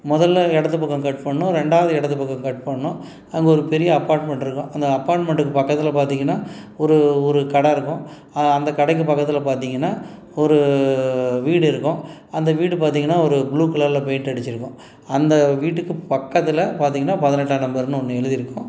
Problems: none marked